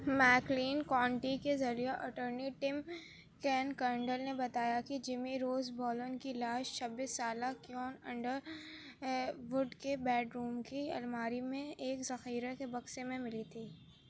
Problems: none marked